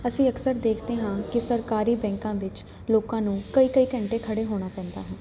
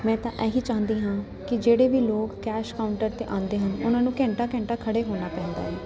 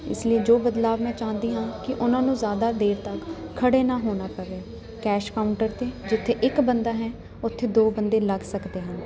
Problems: none marked